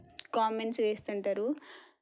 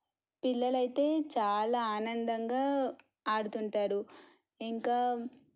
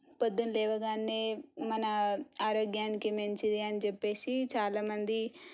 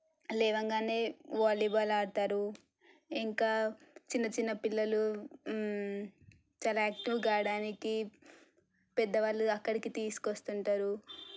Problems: low volume